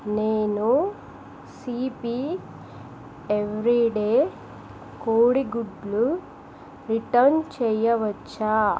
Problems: constant background noise